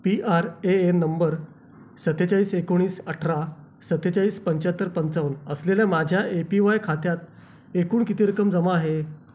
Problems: constant background noise, background conversations at intervals